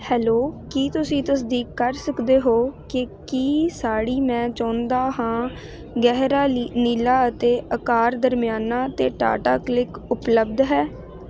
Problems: constant background noise